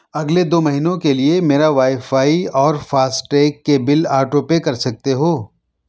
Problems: none marked